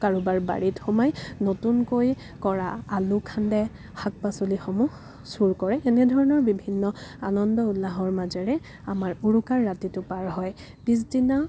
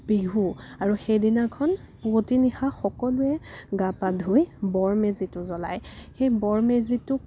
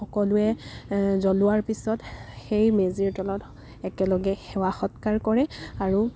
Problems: none marked